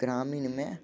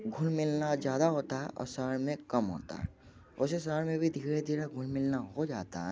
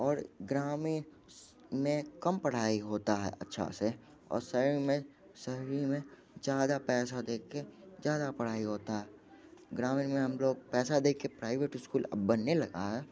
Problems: none marked